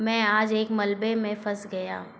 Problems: constant background noise